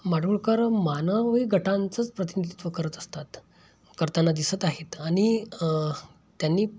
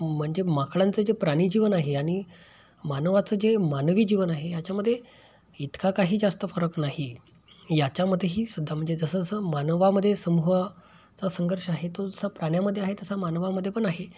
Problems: constant background noise